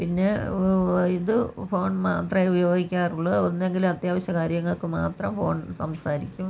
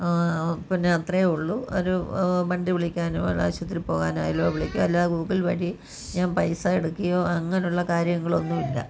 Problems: background conversations at intervals